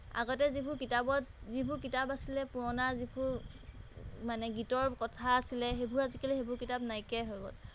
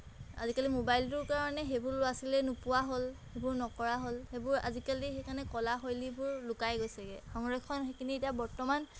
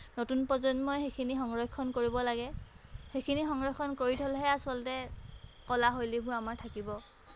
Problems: background sounds at intervals